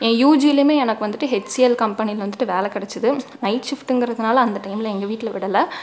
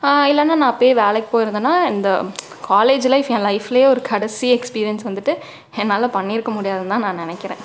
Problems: background sounds at intervals